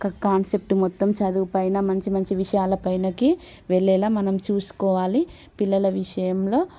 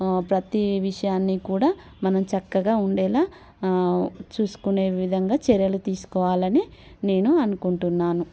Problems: none marked